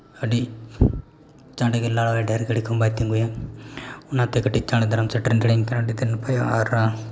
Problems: none marked